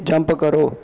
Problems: constant background noise